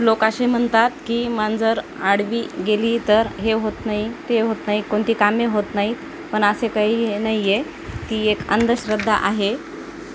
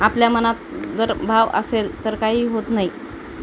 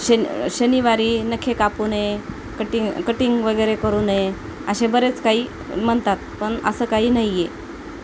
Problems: constant background noise